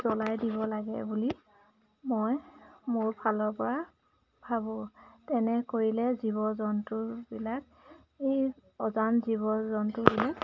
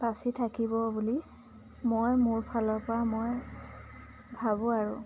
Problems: background sounds at intervals